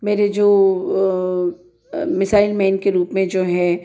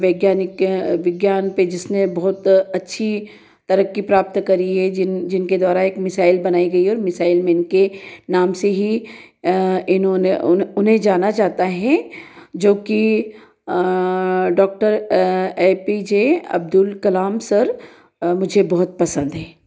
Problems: none marked